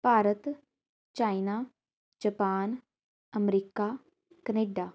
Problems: none marked